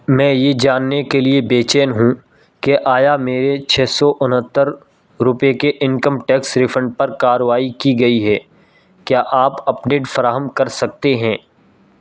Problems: none marked